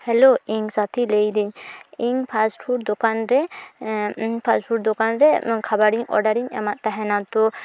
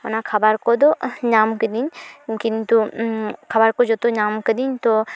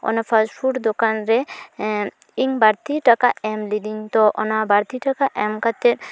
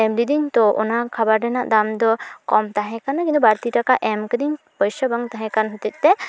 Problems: background sounds at intervals